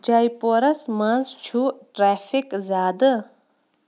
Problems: constant background noise